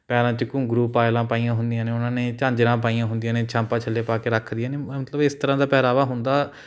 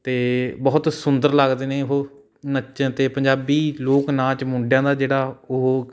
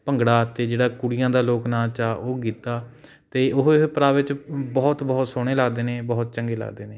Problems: background sounds at intervals